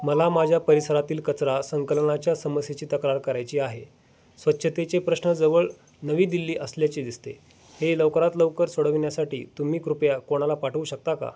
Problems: background sounds at intervals